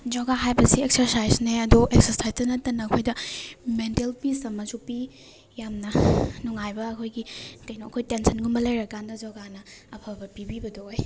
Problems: background sounds at intervals